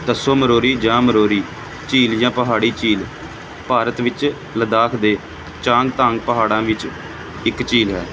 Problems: constant background noise